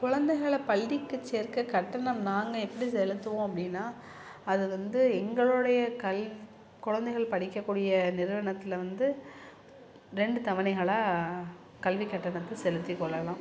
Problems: background sounds at intervals